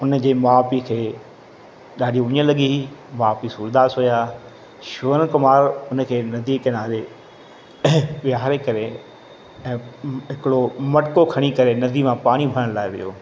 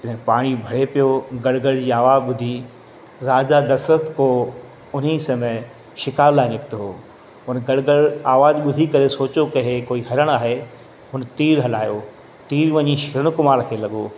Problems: constant background noise, echo